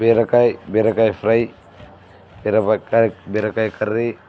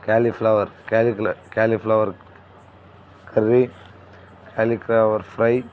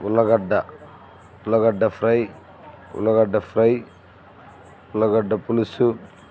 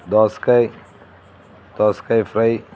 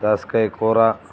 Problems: none marked